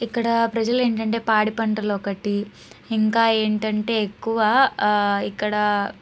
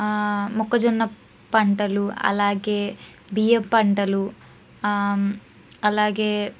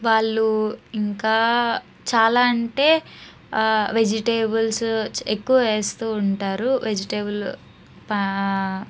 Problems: none marked